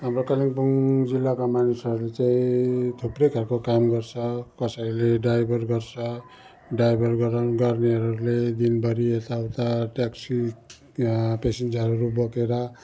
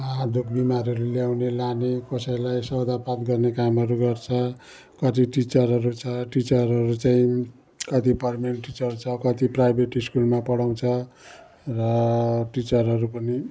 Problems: none marked